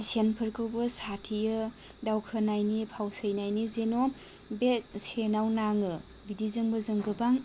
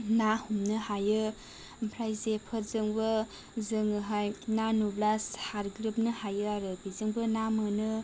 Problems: low volume